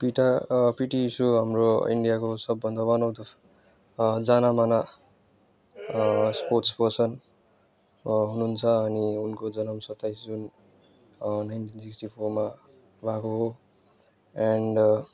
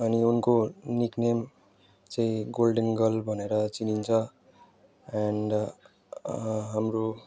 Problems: background conversations at intervals